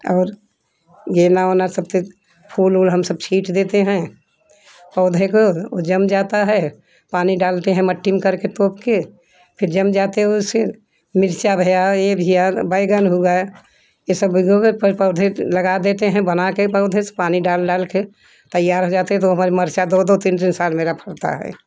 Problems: constant background noise